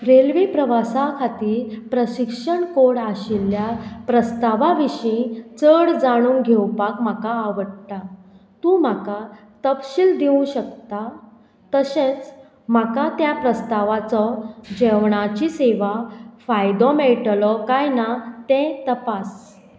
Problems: constant background noise, background conversations at intervals